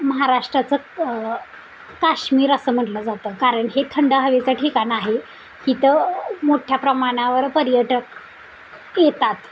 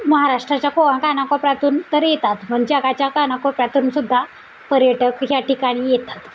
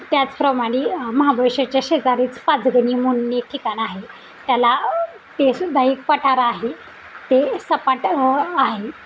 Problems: constant background noise